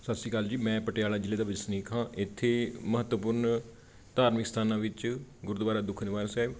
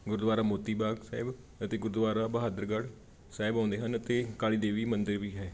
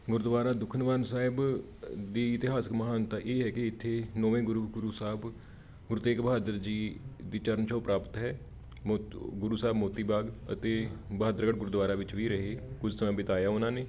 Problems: background conversations at intervals